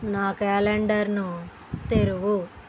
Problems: none marked